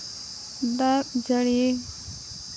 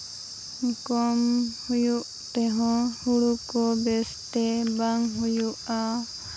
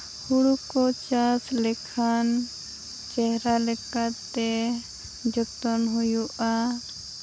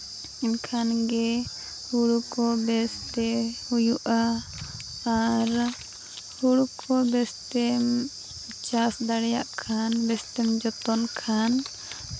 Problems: background sounds at intervals